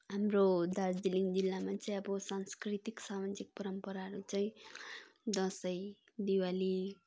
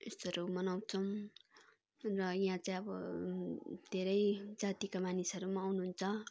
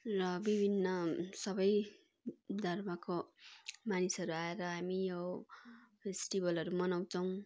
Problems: constant background noise, background conversations at intervals